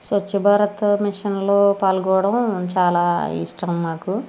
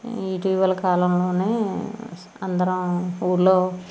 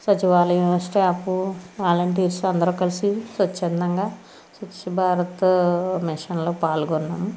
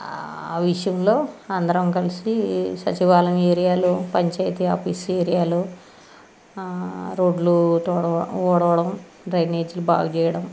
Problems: constant background noise